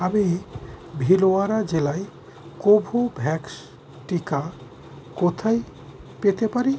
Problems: constant background noise